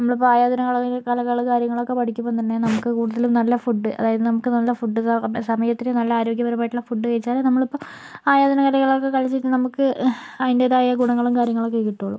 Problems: none marked